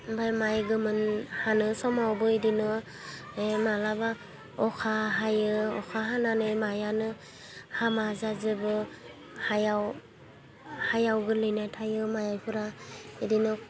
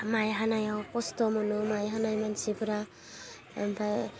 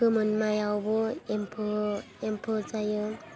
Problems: low volume